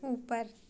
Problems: constant background noise